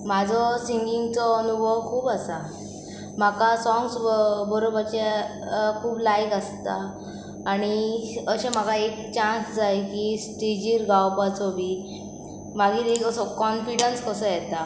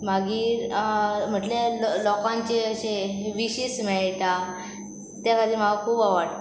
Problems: none marked